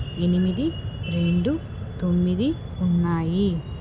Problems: background sounds at intervals